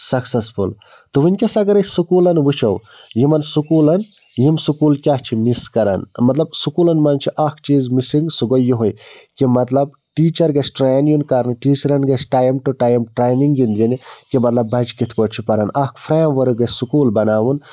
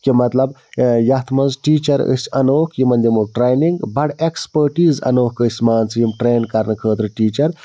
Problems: background sounds at intervals